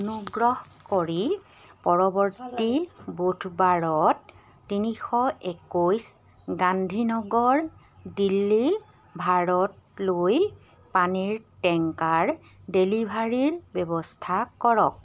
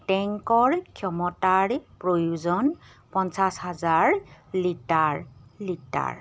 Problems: none marked